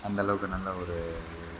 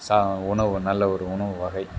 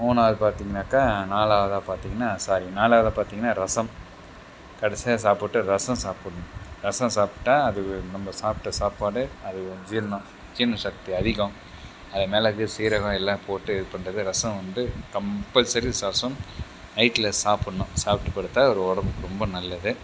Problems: background sounds at intervals